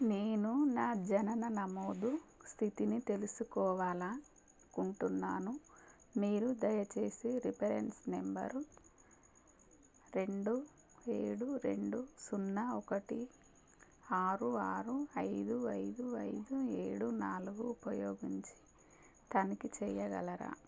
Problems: constant background noise